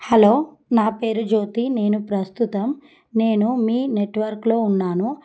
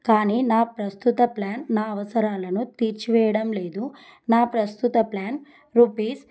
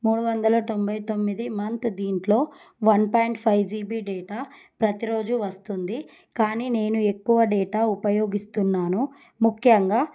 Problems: none marked